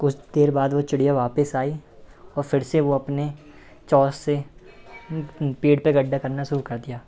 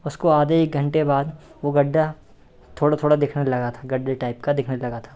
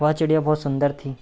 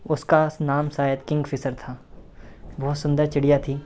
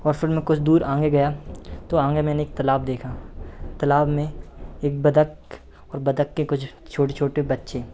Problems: none marked